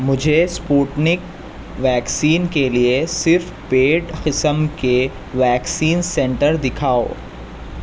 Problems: constant background noise